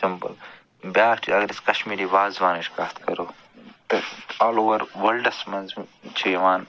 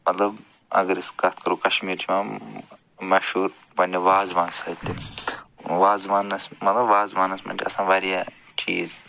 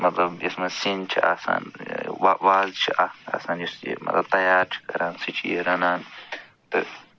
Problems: background sounds at intervals